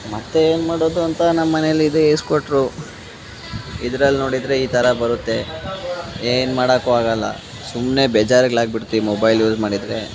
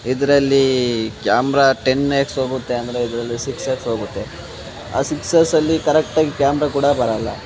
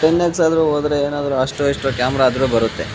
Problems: none marked